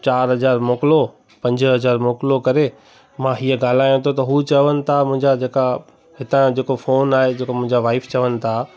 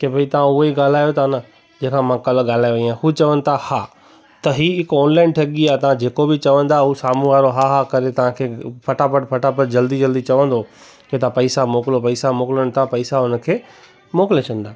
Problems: constant background noise